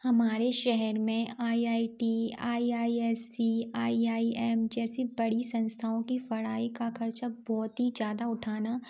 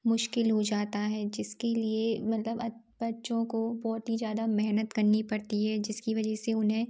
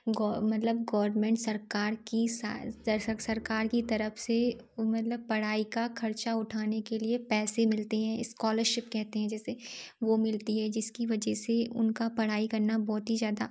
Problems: none marked